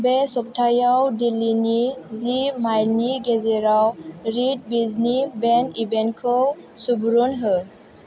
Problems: none marked